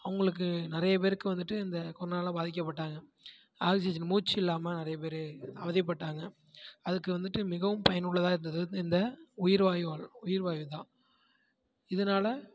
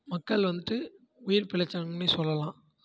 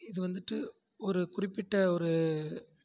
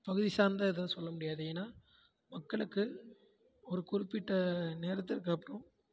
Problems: background conversations at intervals, low volume